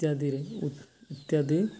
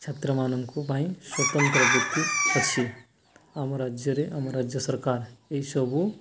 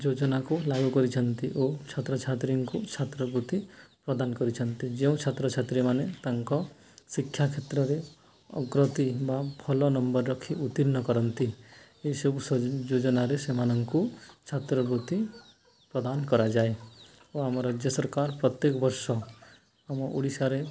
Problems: background sounds at intervals